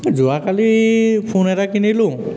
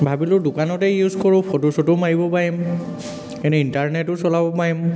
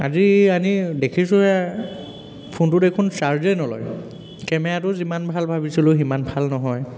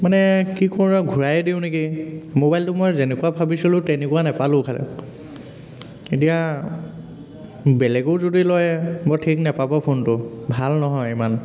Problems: constant background noise, background conversations at intervals